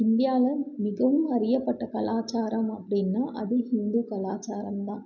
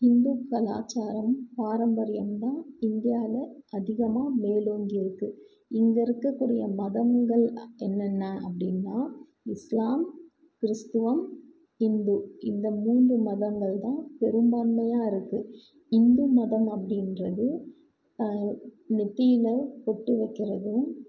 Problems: low volume